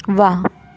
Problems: constant background noise